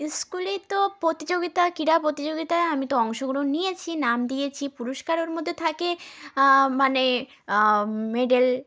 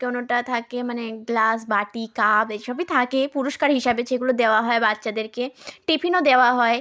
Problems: continuous background conversations